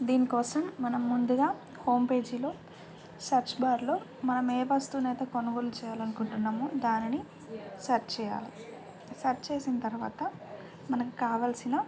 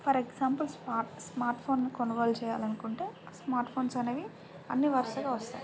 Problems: constant background noise